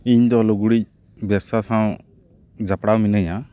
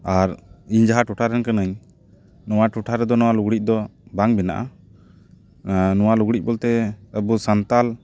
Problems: background sounds at intervals